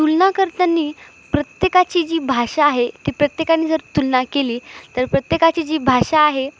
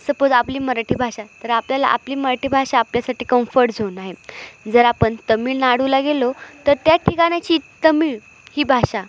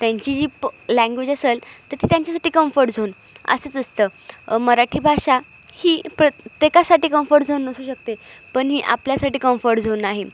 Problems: constant background noise, echo